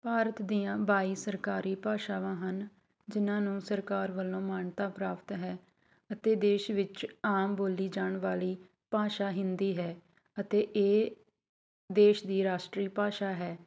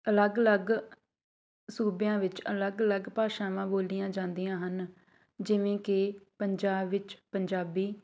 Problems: background sounds at intervals